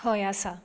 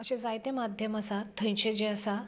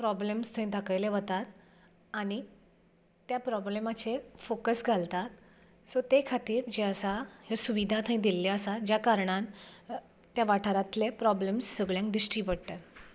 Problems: background sounds at intervals